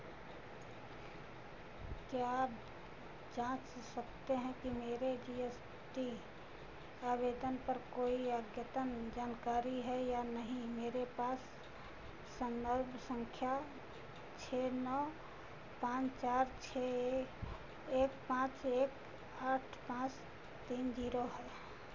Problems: none marked